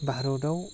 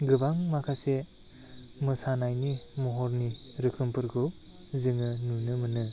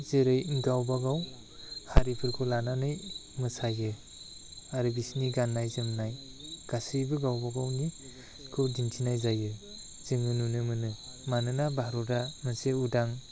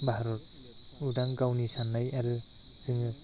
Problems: constant background noise